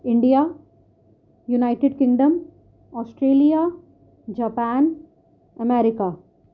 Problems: none marked